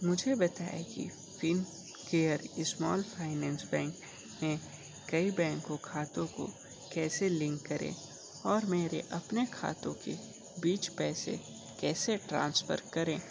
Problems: constant background noise